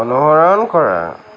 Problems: background sounds at intervals, background conversations at intervals